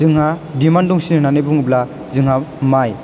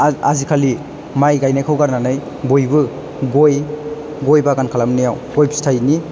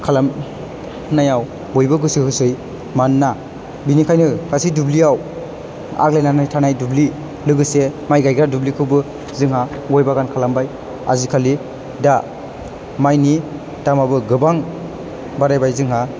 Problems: none marked